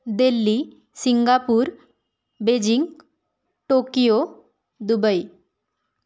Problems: none marked